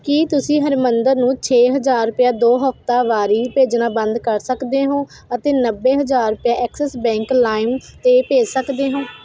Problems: constant background noise